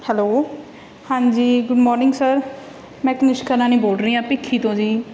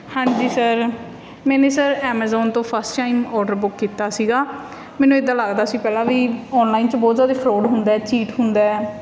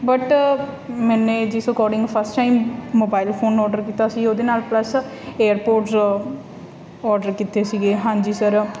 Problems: constant background noise